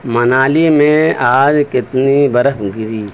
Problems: constant background noise